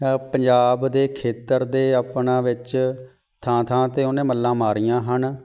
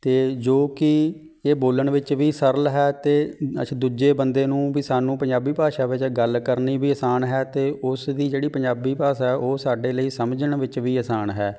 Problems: background sounds at intervals